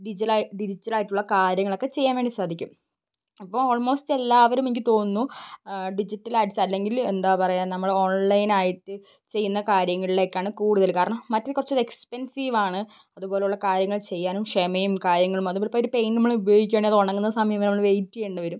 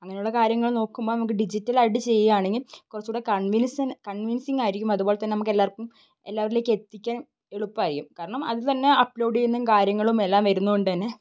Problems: background sounds at intervals